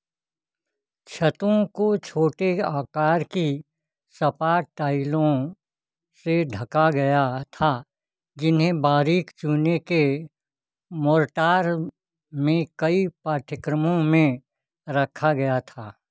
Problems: none marked